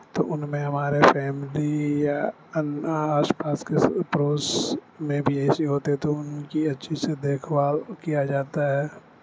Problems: constant background noise